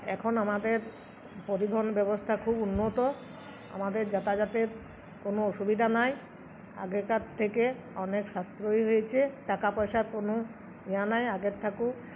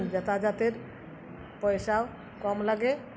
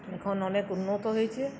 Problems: none marked